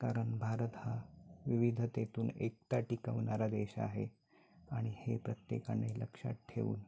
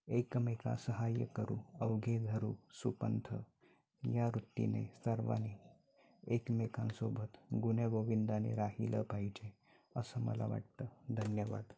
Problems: background sounds at intervals, background conversations at intervals